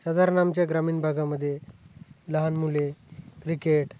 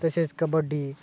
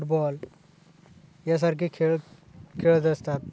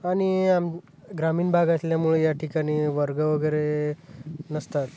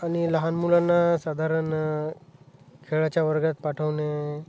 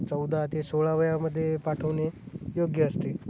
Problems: none marked